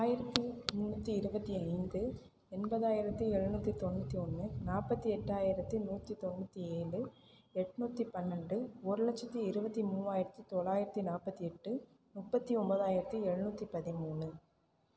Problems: none marked